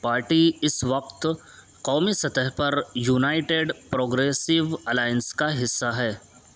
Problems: constant background noise